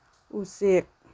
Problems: none marked